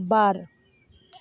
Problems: background sounds at intervals